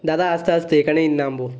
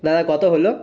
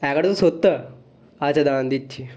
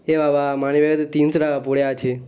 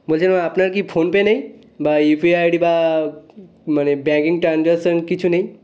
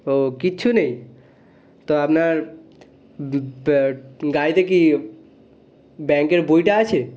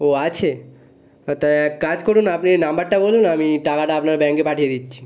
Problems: constant background noise